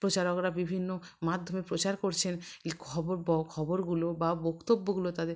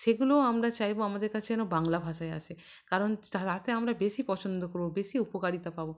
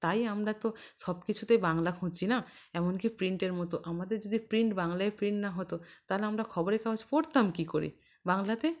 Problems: background sounds at intervals